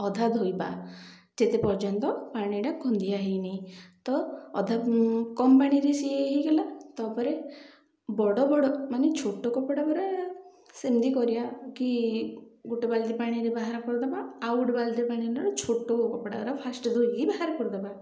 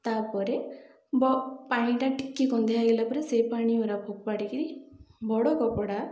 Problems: none marked